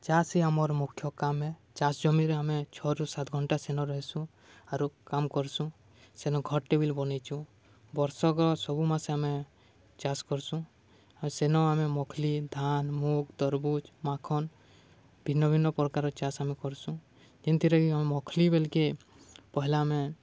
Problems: none marked